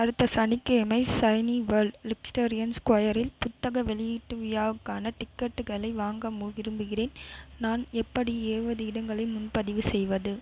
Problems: constant background noise